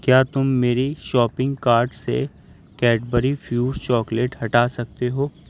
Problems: background sounds at intervals